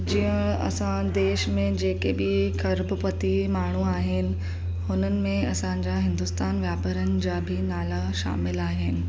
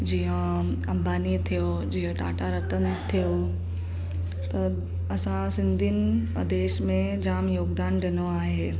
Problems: constant background noise